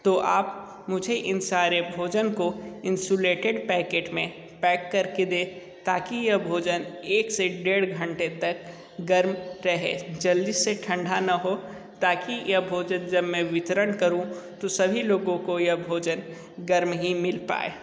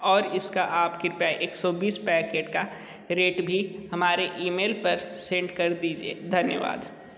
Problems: constant background noise